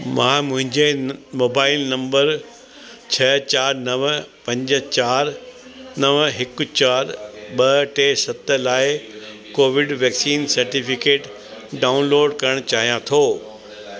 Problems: constant background noise, echo